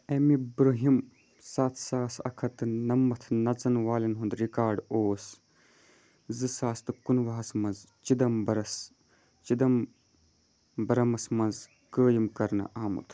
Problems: background sounds at intervals